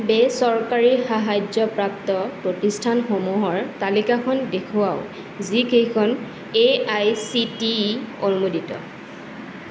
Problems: constant background noise